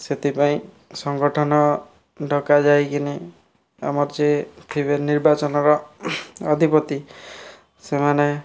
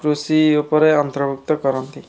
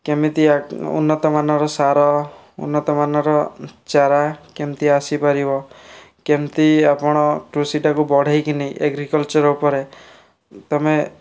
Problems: none marked